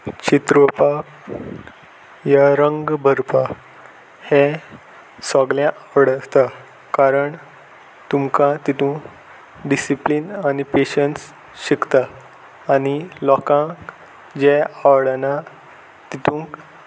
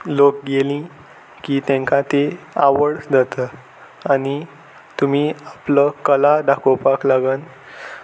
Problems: constant background noise